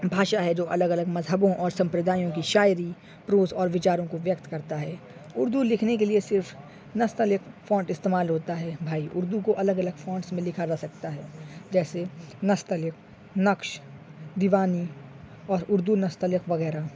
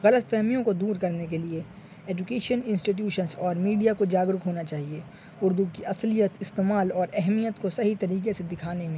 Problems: constant background noise